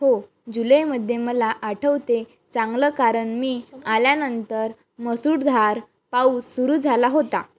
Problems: background sounds at intervals, background conversations at intervals